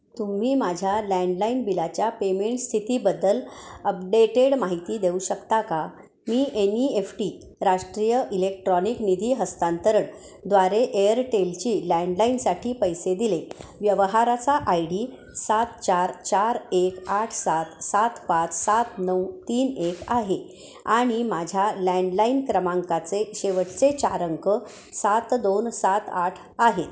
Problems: constant background noise, continuous background conversations, echo